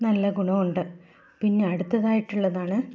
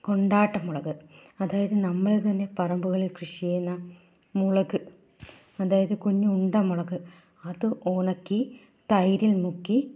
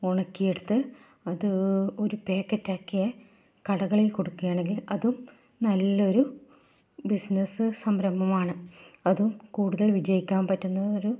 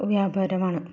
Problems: low volume